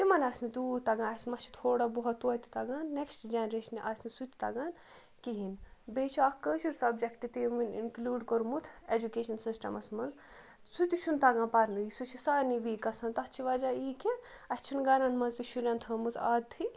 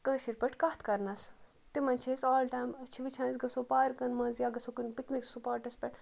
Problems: background sounds at intervals